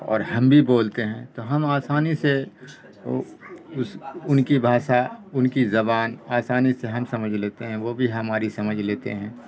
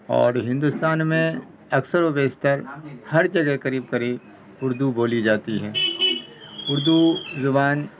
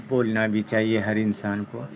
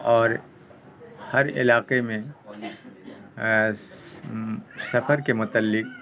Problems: constant background noise